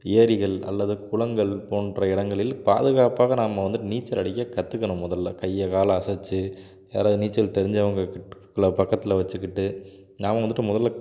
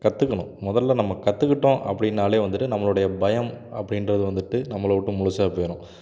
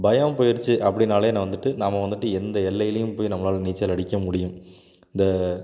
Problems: background sounds at intervals